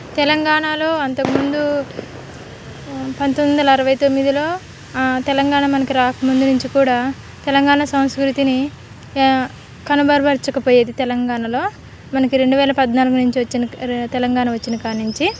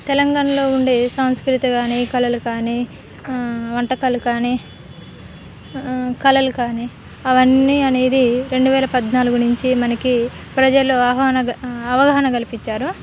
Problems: constant background noise